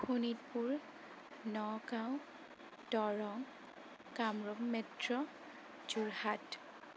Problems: constant background noise, low volume